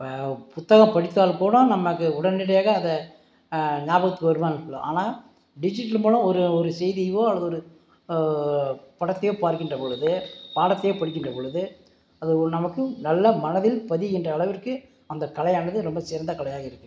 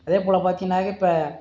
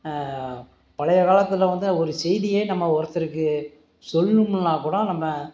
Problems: background sounds at intervals